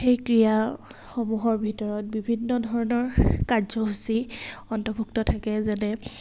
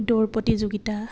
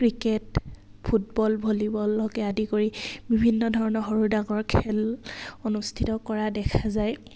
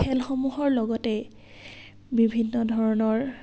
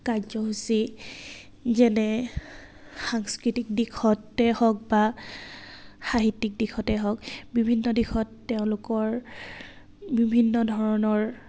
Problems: none marked